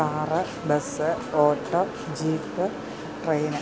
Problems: constant background noise